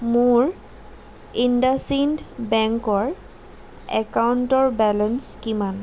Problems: constant background noise